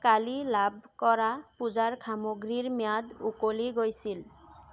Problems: constant background noise